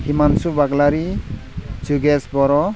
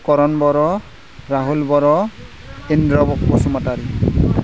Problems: constant background noise